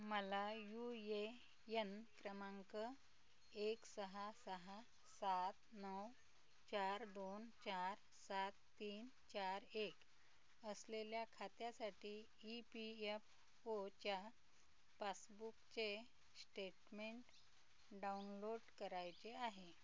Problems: constant background noise, low volume